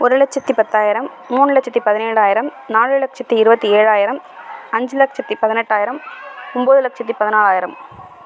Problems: none marked